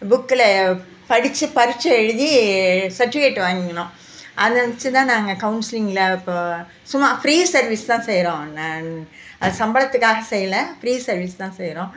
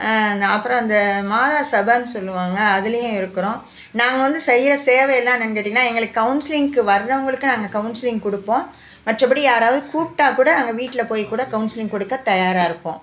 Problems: background sounds at intervals